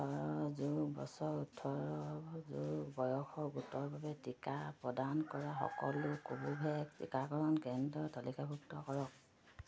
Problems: none marked